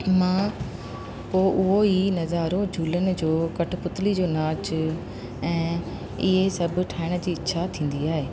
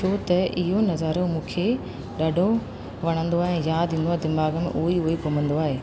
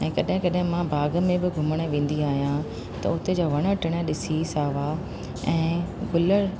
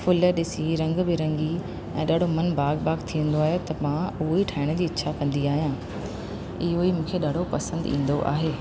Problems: constant background noise